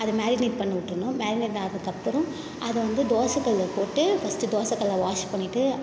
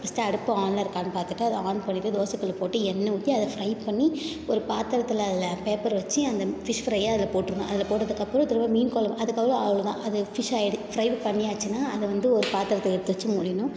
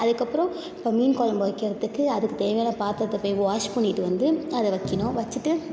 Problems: none marked